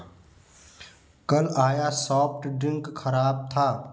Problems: none marked